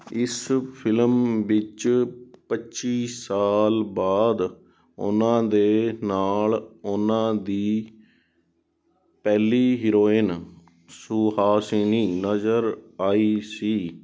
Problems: background sounds at intervals